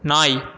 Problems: none marked